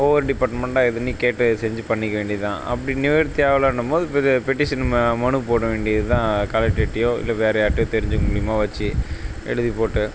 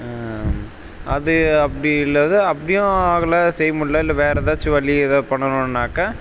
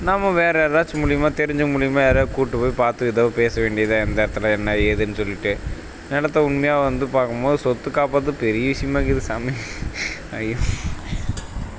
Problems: background sounds at intervals